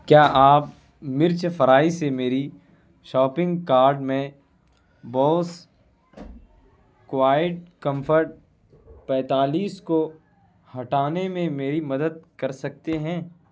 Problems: none marked